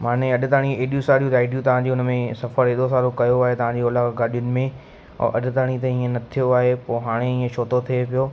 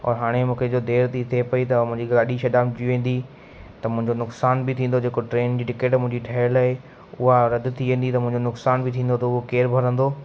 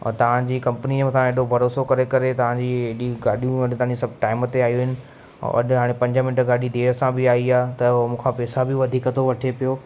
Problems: constant background noise